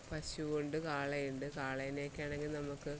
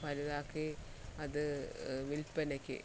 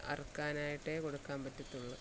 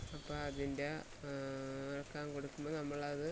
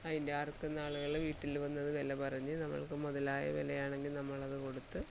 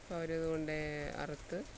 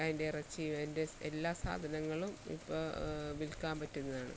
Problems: constant background noise, low volume